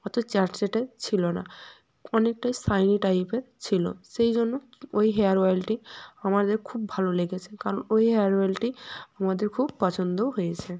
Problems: none marked